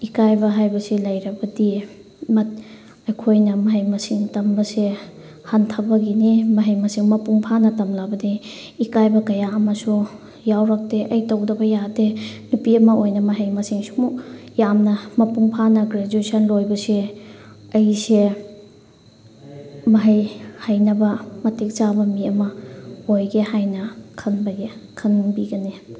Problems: background sounds at intervals